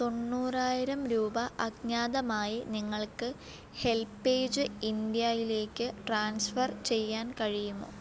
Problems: none marked